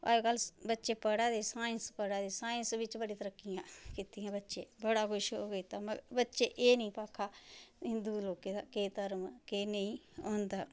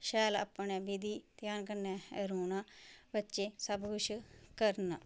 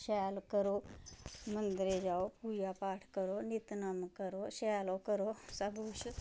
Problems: background sounds at intervals